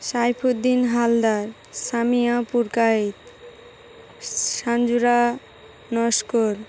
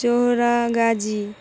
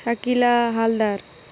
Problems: constant background noise